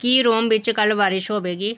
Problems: none marked